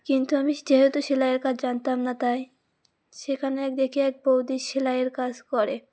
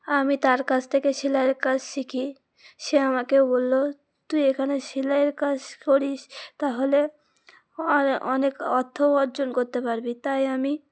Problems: constant background noise